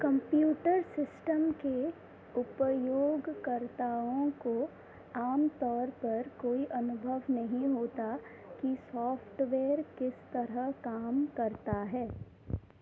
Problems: none marked